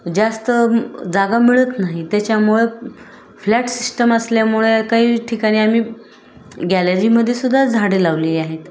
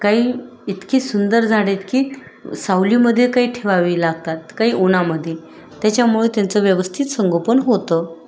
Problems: constant background noise, continuous background conversations